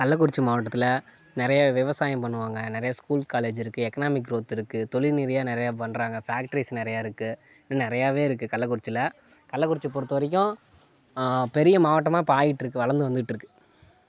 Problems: background sounds at intervals